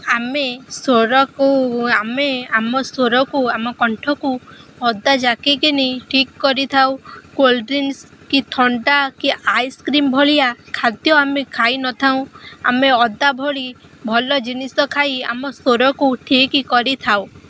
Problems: constant background noise